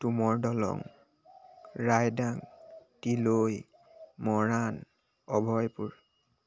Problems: none marked